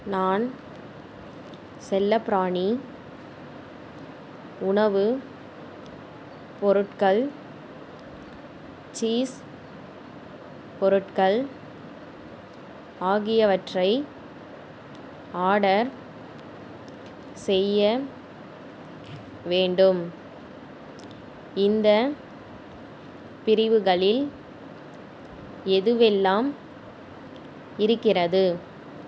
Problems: none marked